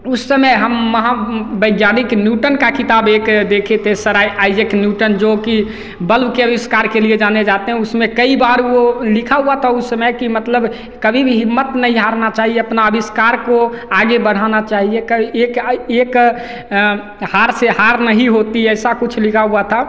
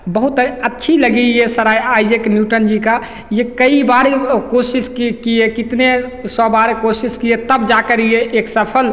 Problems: none marked